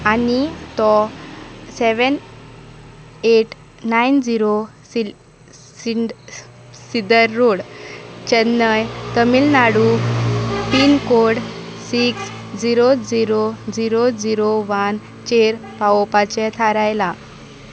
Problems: constant background noise